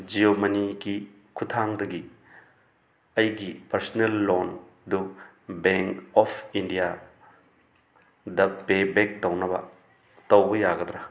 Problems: constant background noise